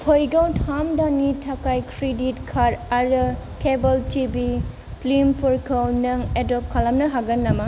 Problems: low volume